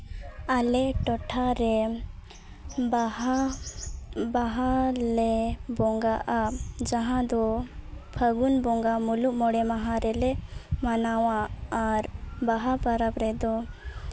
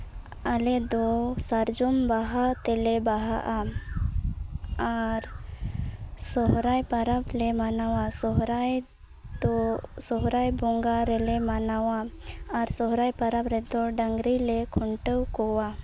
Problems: none marked